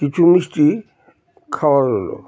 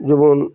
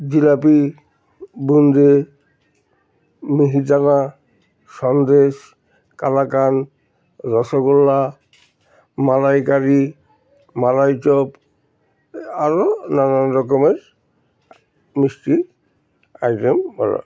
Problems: background sounds at intervals, background conversations at intervals